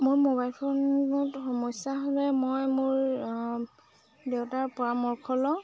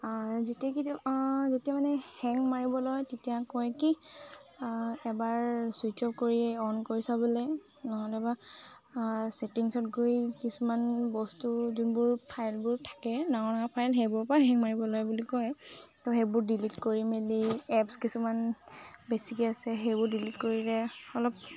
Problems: constant background noise, background conversations at intervals